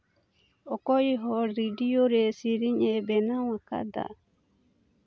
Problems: none marked